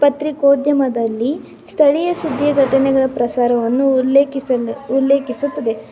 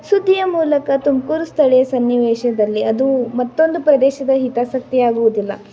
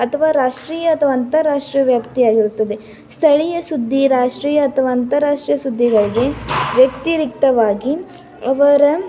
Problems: continuous background conversations